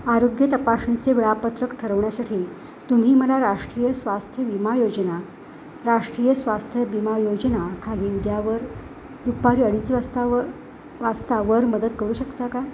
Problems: constant background noise